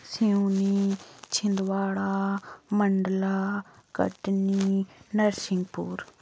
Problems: background sounds at intervals, low volume